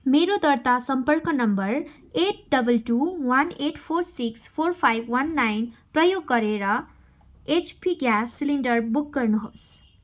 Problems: constant background noise